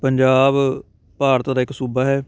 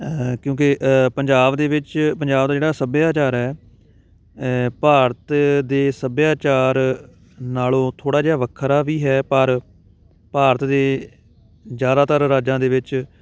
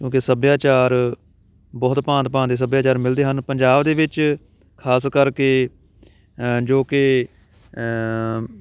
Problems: constant background noise, background conversations at intervals